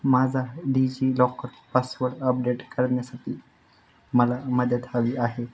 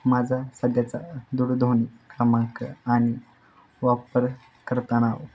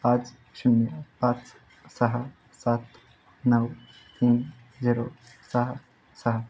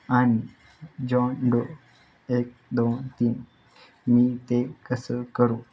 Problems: constant background noise